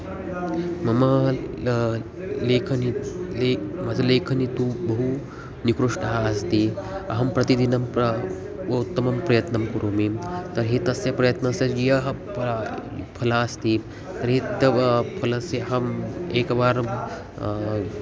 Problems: continuous background conversations